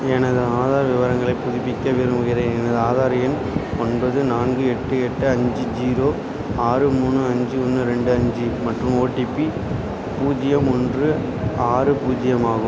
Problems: constant background noise